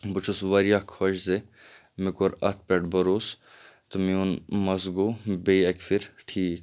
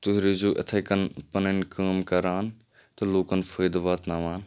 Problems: none marked